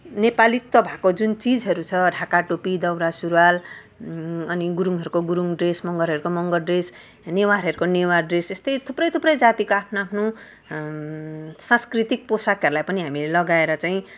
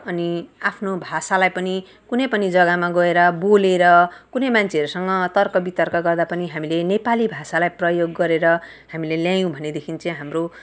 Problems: background sounds at intervals